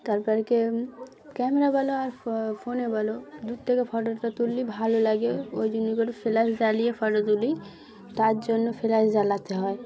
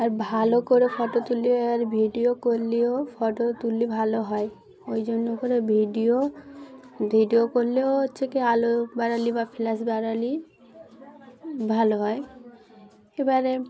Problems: background sounds at intervals, continuous background conversations